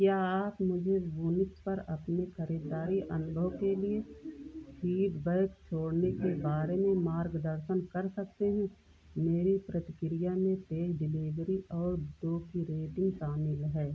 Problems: background sounds at intervals